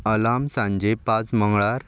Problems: background sounds at intervals